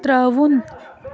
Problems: constant background noise